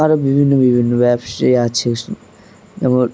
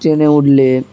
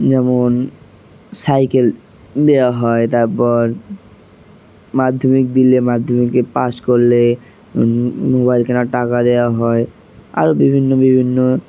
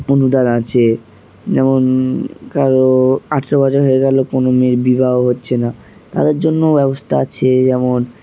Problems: constant background noise